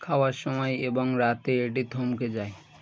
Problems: continuous background conversations